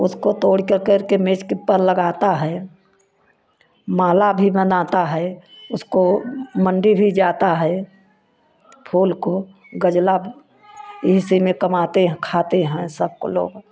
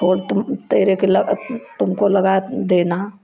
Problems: constant background noise